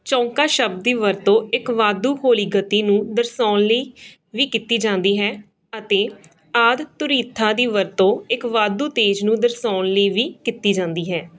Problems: none marked